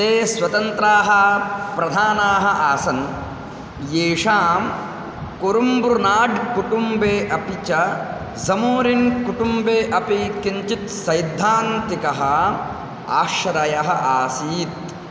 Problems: none marked